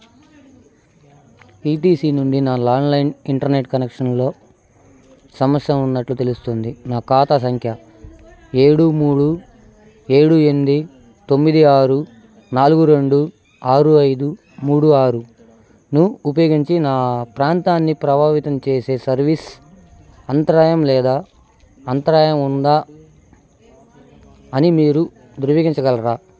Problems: constant background noise